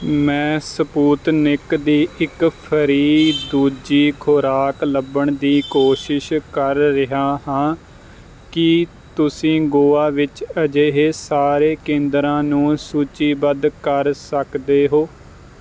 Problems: none marked